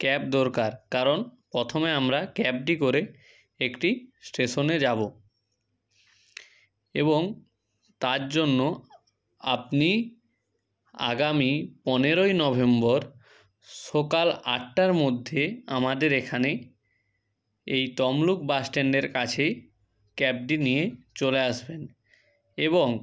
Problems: background sounds at intervals